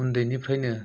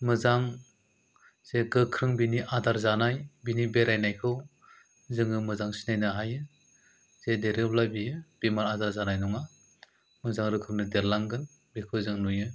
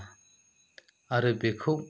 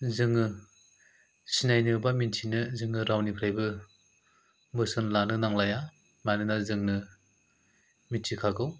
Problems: none marked